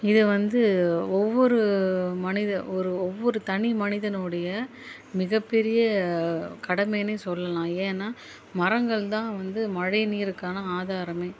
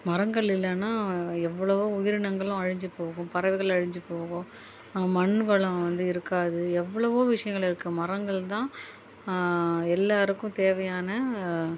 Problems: background sounds at intervals